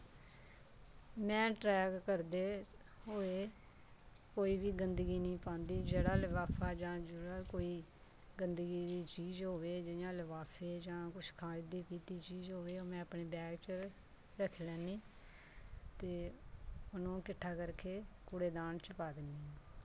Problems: constant background noise